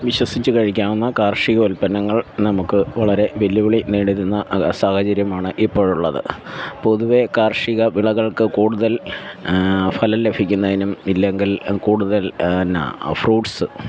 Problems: background sounds at intervals